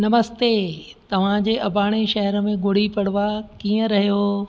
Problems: constant background noise